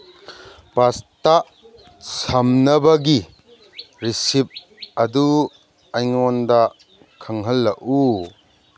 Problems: background sounds at intervals